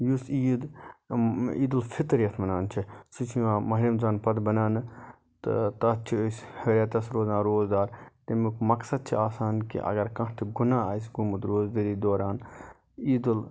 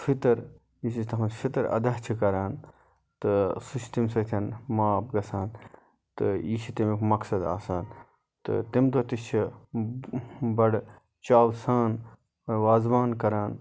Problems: none marked